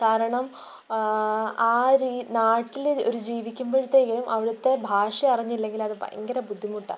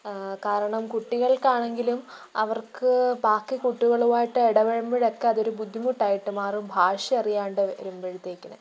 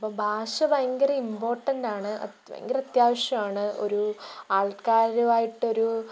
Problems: background sounds at intervals, low volume